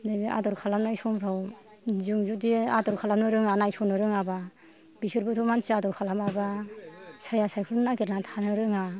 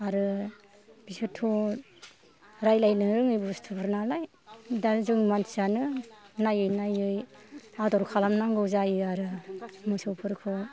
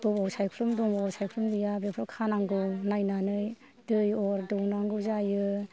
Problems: low volume